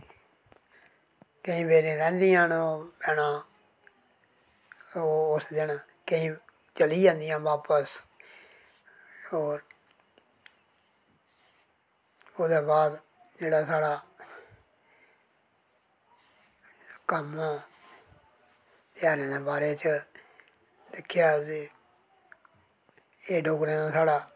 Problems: none marked